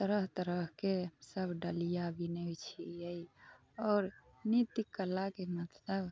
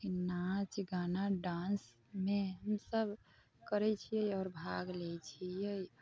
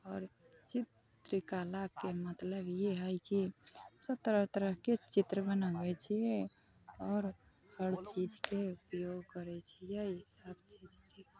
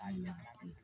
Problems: constant background noise, background conversations at intervals